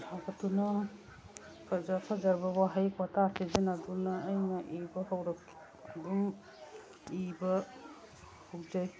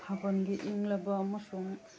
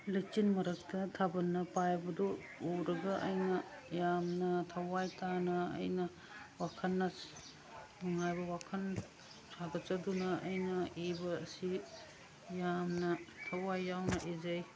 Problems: background sounds at intervals, background conversations at intervals